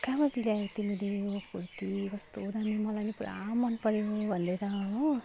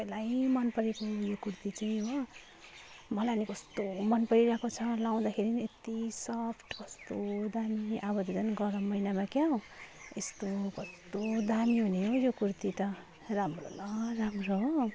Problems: none marked